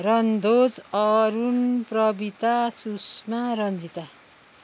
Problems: none marked